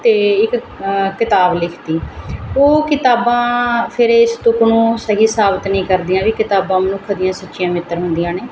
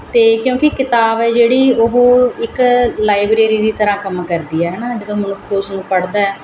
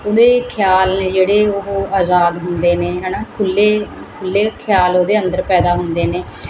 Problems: constant background noise